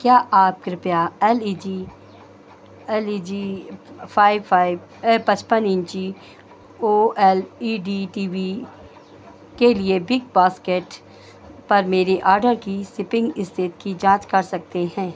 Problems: none marked